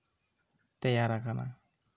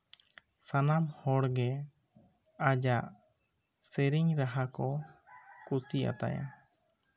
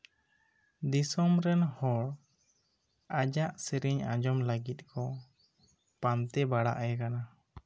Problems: none marked